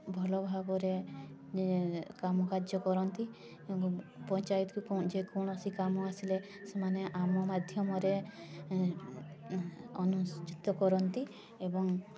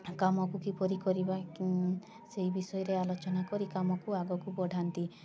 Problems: constant background noise, continuous background conversations